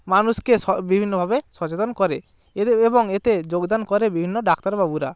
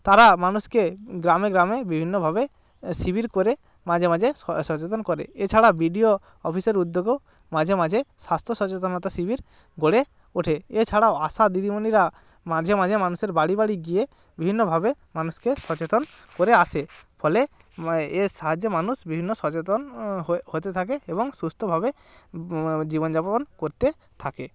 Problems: constant background noise